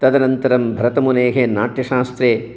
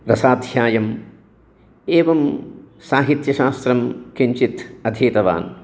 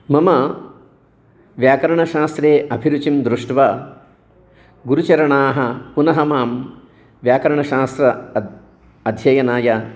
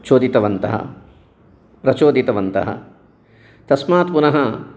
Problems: background conversations at intervals